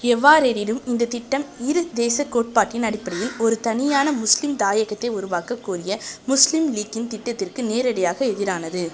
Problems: constant background noise